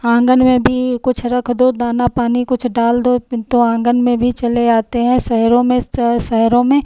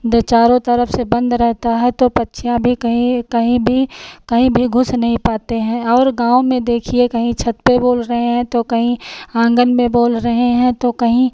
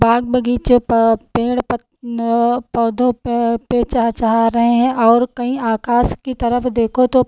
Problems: none marked